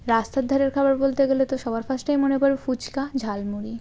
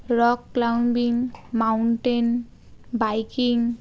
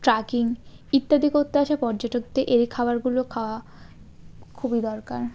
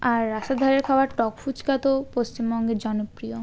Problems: constant background noise